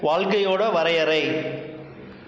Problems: constant background noise